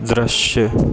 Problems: constant background noise